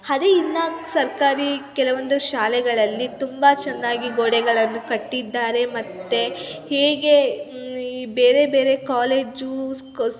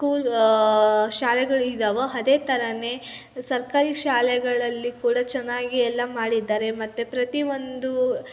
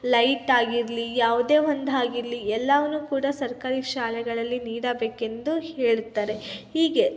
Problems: constant background noise, continuous background conversations